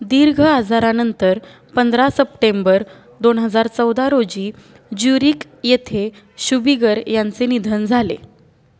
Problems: none marked